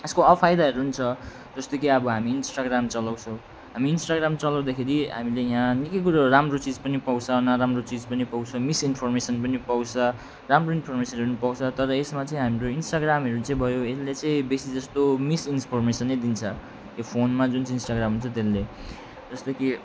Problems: none marked